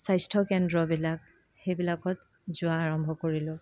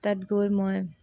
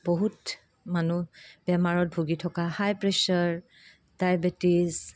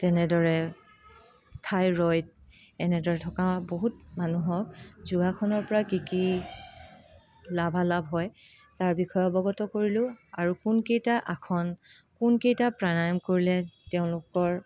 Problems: constant background noise, background conversations at intervals